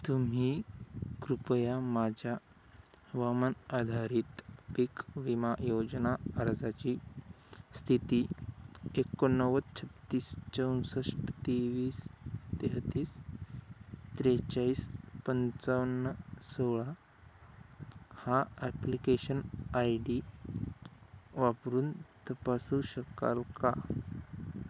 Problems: constant background noise